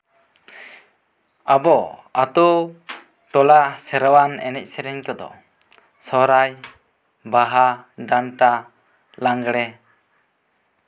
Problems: none marked